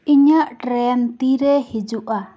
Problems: constant background noise, background conversations at intervals